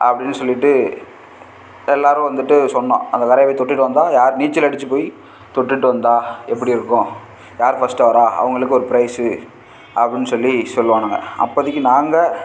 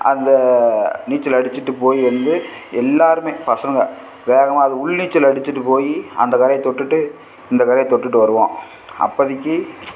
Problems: constant background noise